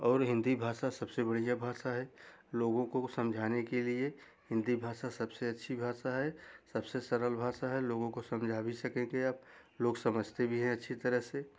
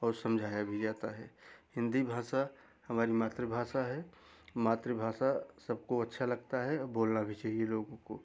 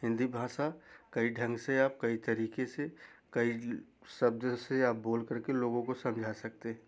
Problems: background sounds at intervals